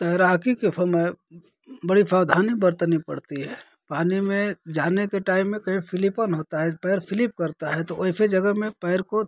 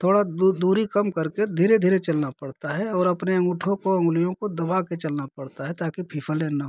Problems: constant background noise